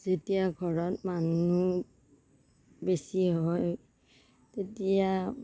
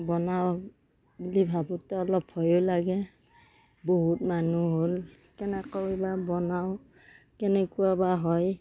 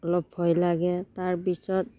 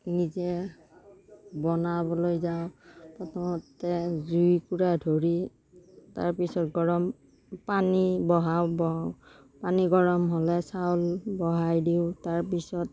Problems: background sounds at intervals